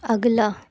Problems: constant background noise